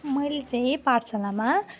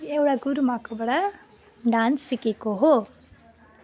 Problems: none marked